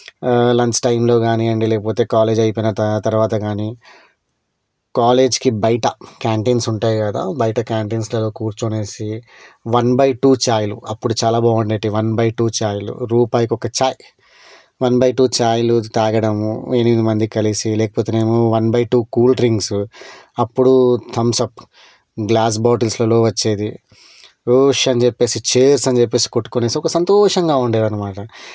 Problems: none marked